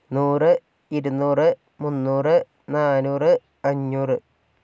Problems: none marked